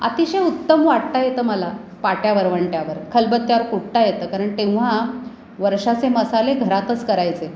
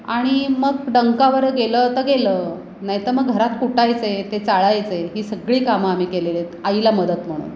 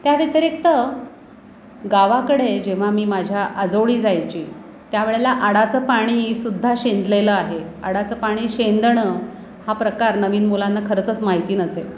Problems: none marked